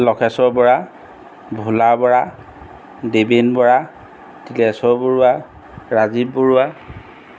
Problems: none marked